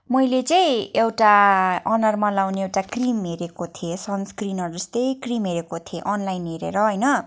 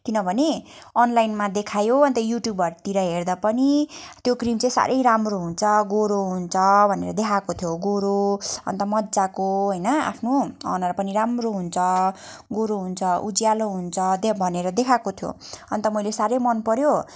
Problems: none marked